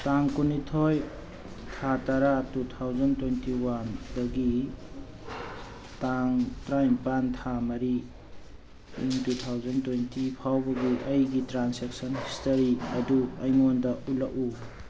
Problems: constant background noise